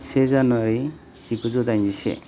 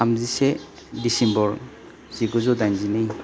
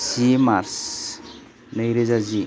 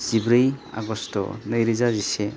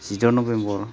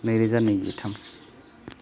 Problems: constant background noise